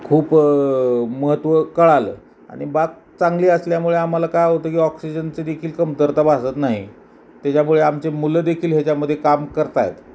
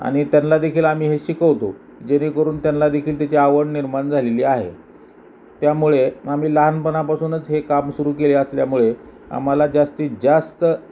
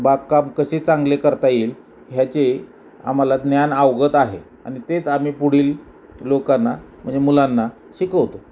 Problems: none marked